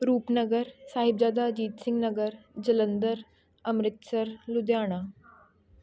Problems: none marked